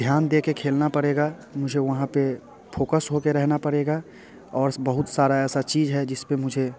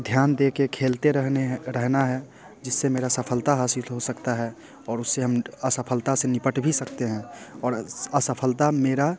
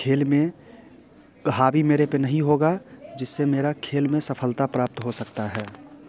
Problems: constant background noise, background conversations at intervals